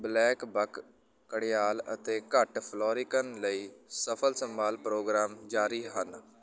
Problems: continuous background conversations